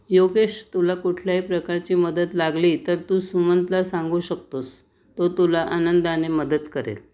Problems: none marked